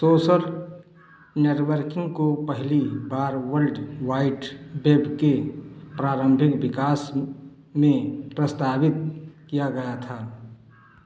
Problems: echo